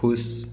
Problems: none marked